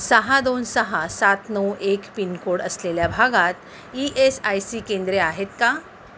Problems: constant background noise